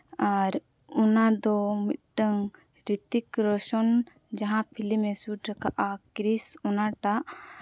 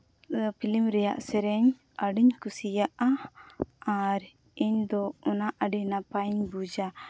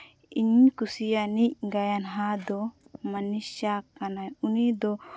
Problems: background sounds at intervals